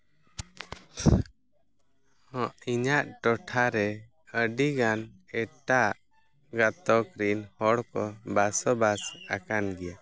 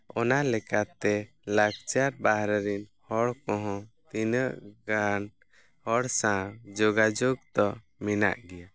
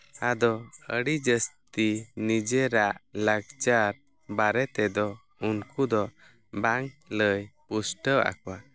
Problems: none marked